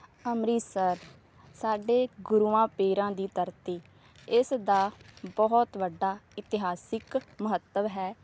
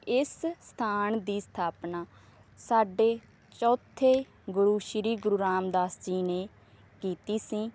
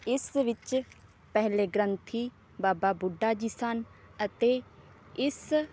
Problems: none marked